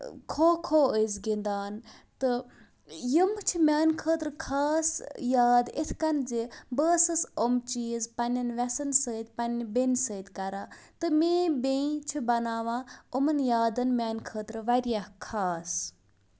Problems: none marked